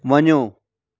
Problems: background sounds at intervals